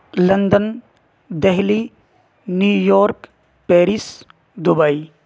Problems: constant background noise